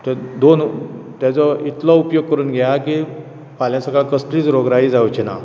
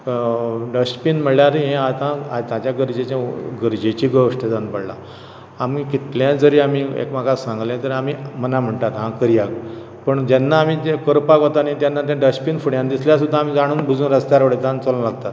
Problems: background sounds at intervals